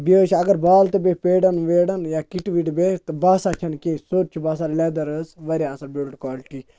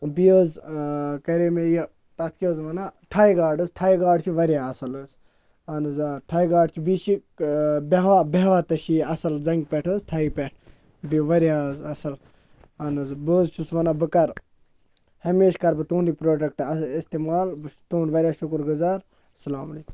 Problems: constant background noise